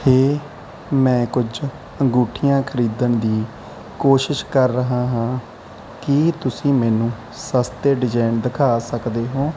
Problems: none marked